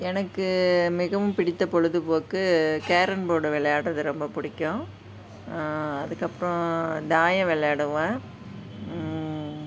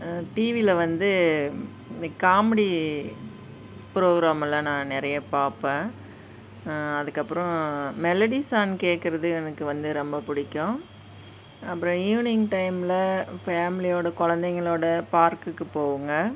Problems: constant background noise, background conversations at intervals